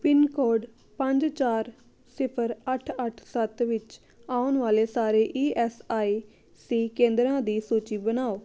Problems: none marked